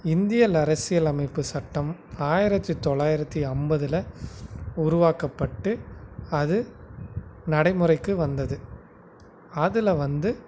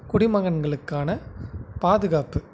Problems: constant background noise